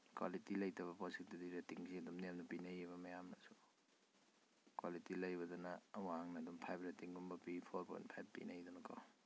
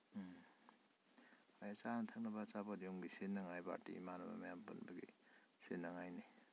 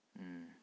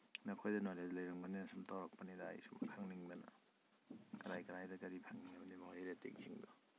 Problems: low volume